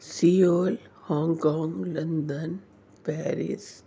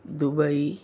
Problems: none marked